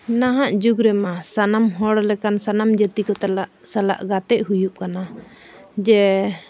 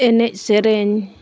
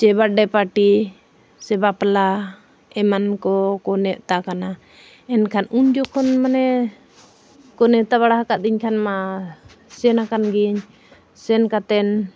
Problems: none marked